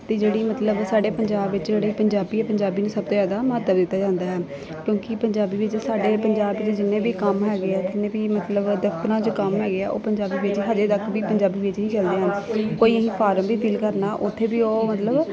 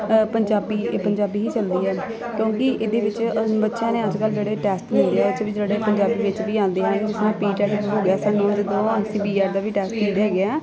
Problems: constant background noise, continuous background conversations